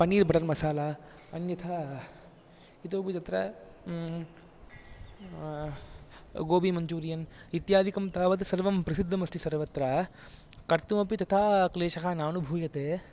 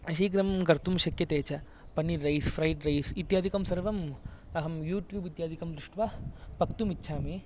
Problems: none marked